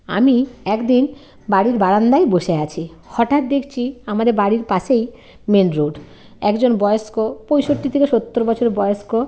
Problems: constant background noise, background conversations at intervals